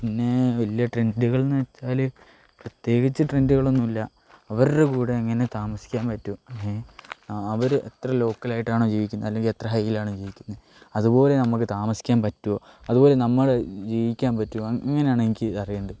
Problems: low volume